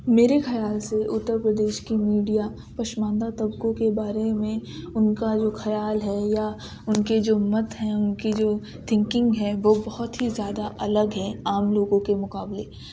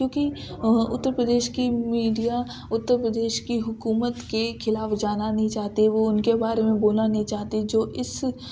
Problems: background sounds at intervals